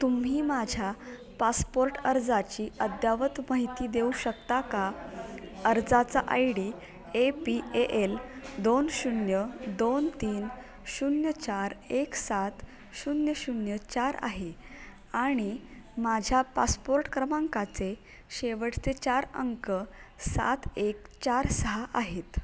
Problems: none marked